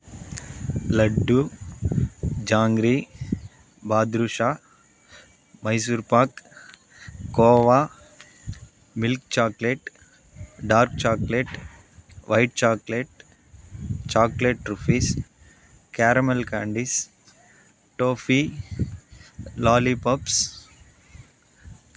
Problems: background sounds at intervals